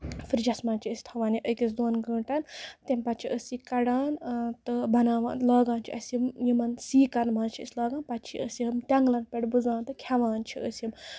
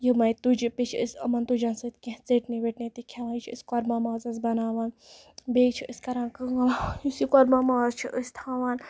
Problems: none marked